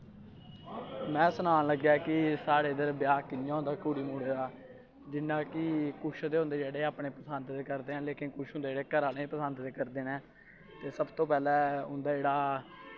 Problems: constant background noise